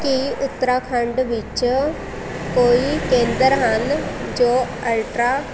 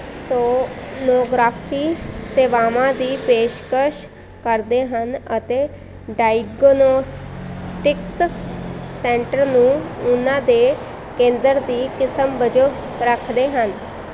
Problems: constant background noise